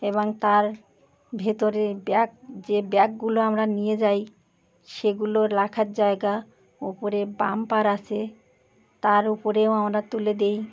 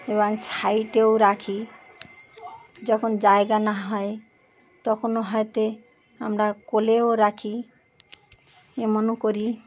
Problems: constant background noise, continuous background conversations